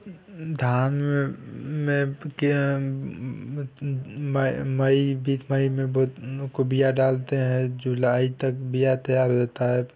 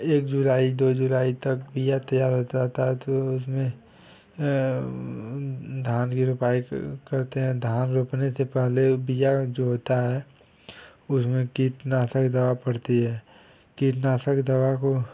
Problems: background sounds at intervals